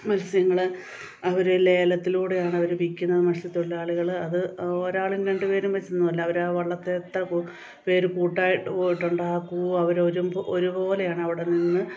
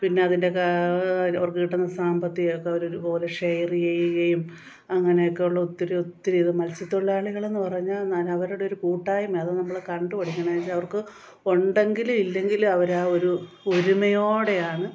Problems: none marked